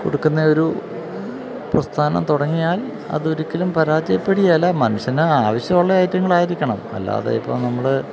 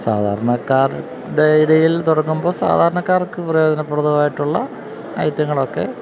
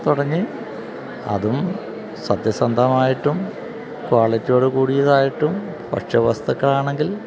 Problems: none marked